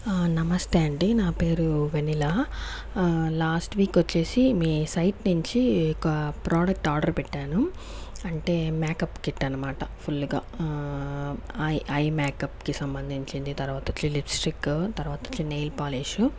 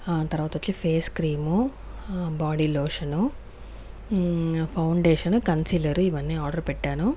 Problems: background sounds at intervals